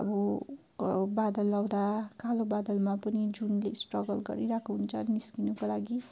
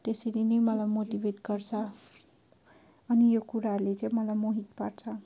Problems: background sounds at intervals